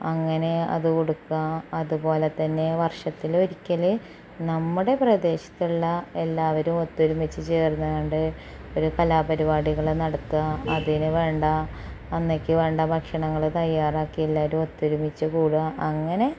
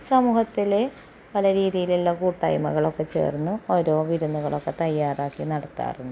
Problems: background sounds at intervals, low volume